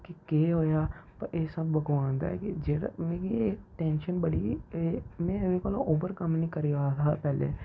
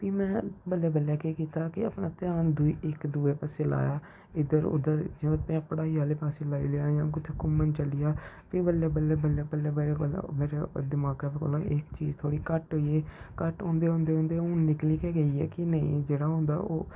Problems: low volume